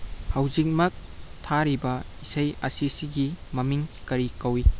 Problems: constant background noise